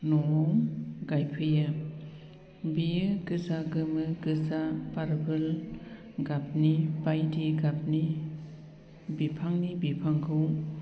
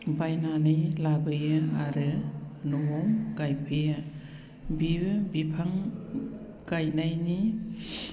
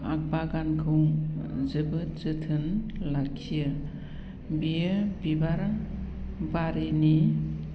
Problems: low volume